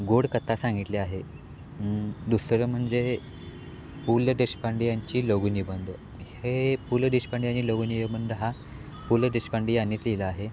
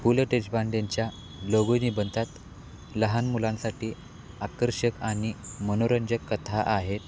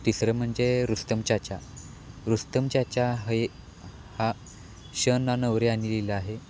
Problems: none marked